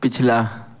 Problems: constant background noise